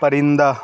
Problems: none marked